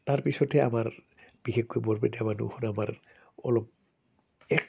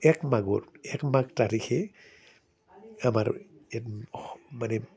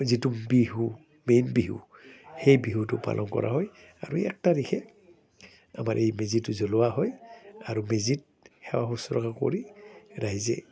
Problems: none marked